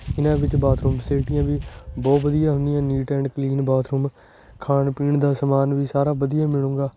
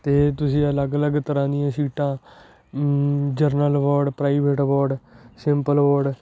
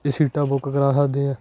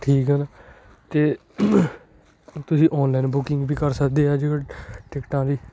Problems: none marked